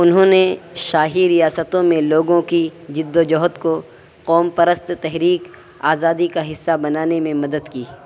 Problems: constant background noise